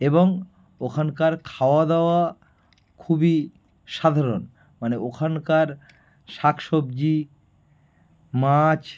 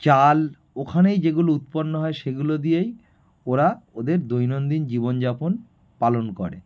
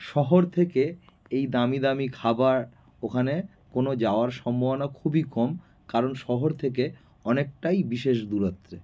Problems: background sounds at intervals